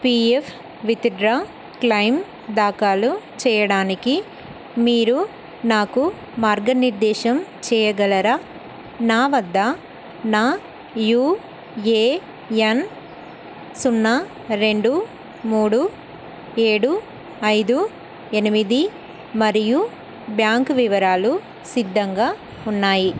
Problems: constant background noise